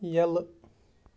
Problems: background sounds at intervals